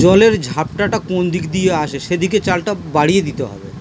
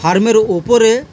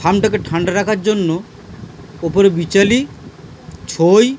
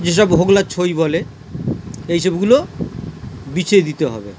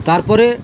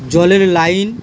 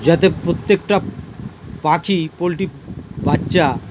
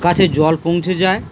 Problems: constant background noise